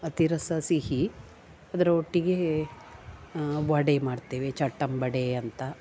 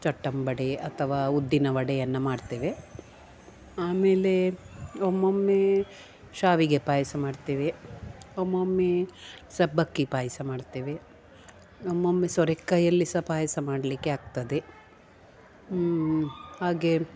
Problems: none marked